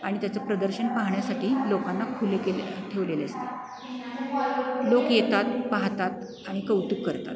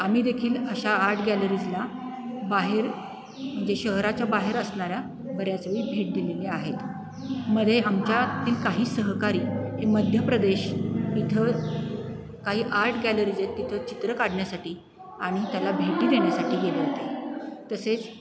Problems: constant background noise